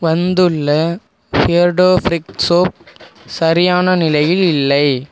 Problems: constant background noise